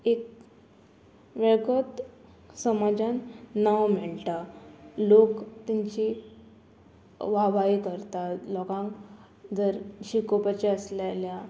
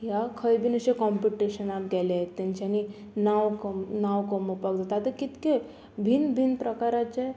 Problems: none marked